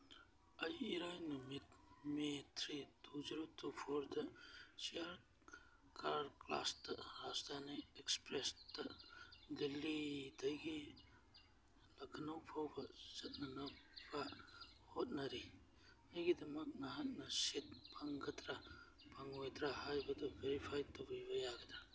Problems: background sounds at intervals, background conversations at intervals